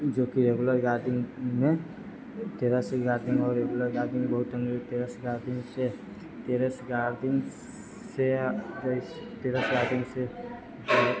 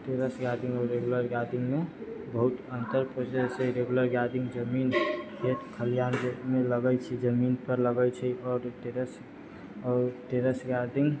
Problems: low volume